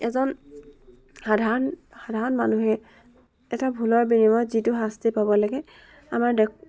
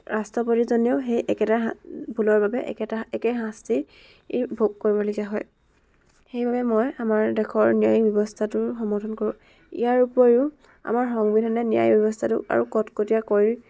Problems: background sounds at intervals, background conversations at intervals